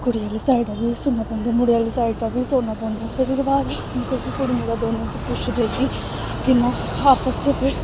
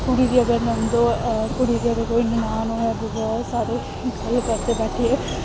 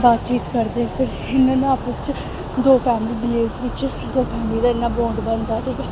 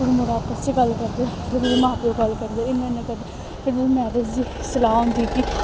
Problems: constant background noise